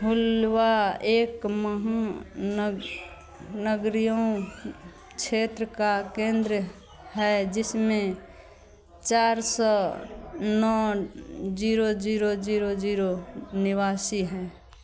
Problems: constant background noise